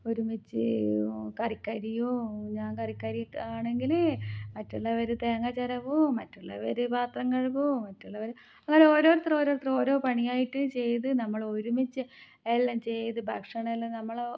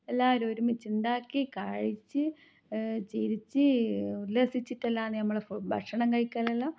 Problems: none marked